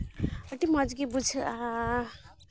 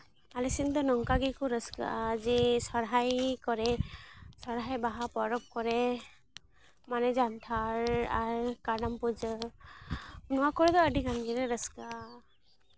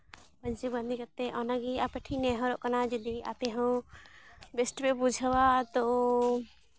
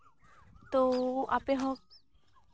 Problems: constant background noise